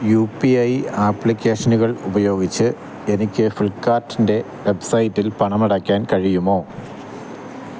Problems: constant background noise